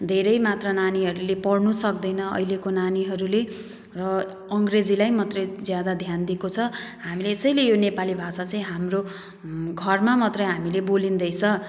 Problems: background sounds at intervals